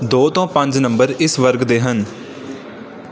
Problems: background sounds at intervals